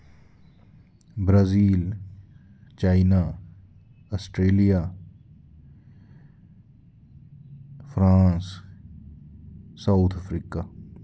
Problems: constant background noise